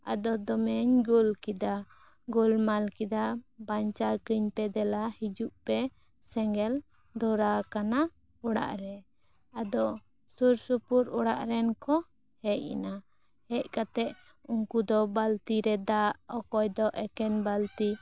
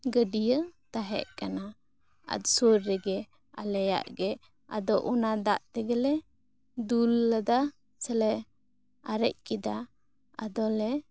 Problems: none marked